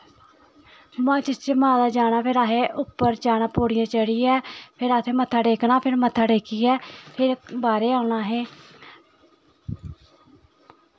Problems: constant background noise, continuous background conversations